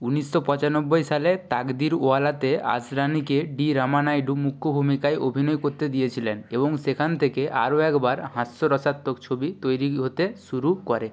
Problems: background conversations at intervals